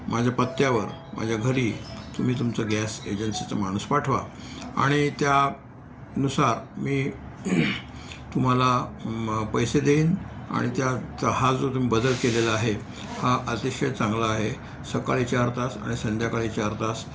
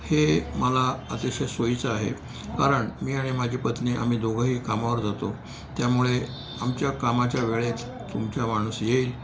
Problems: none marked